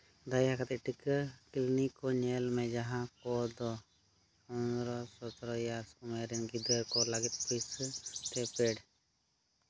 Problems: background sounds at intervals